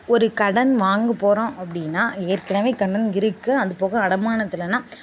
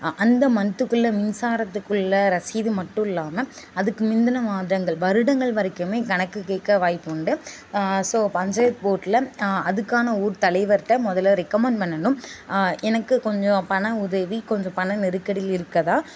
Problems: constant background noise, background conversations at intervals